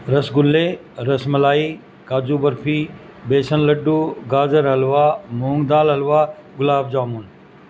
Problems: constant background noise